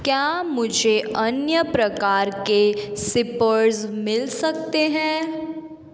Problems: background sounds at intervals